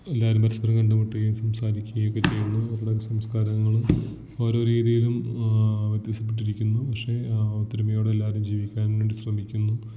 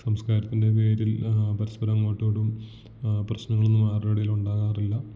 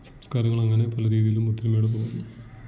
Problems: background sounds at intervals, low volume